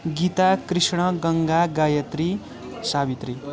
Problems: continuous background conversations